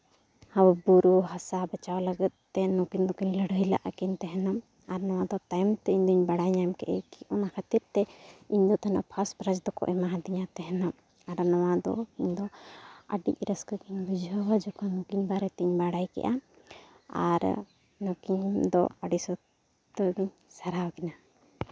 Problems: background sounds at intervals